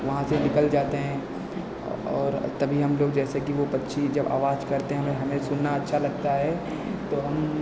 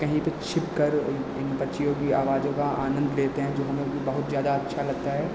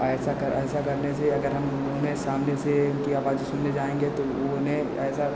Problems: constant background noise, echo